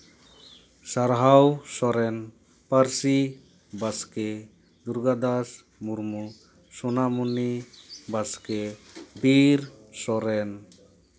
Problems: background sounds at intervals